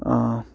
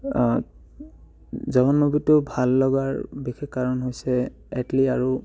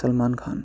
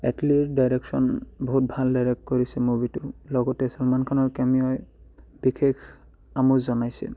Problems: background sounds at intervals